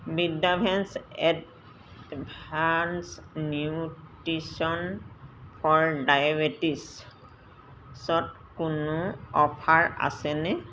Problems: none marked